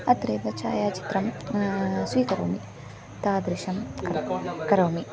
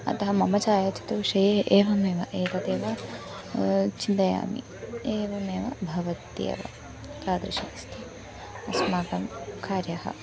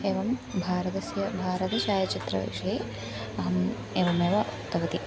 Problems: background sounds at intervals